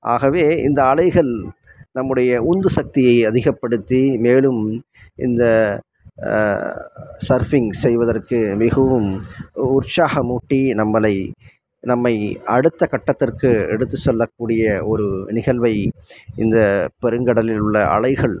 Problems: none marked